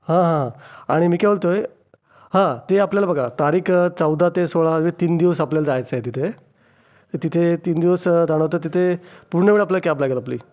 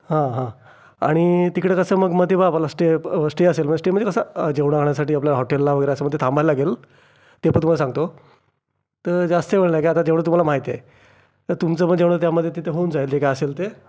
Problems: background sounds at intervals